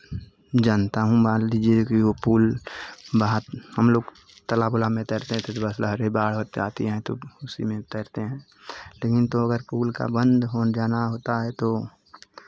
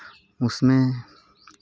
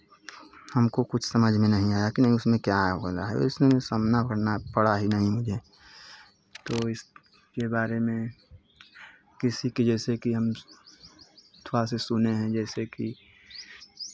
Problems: constant background noise, continuous background conversations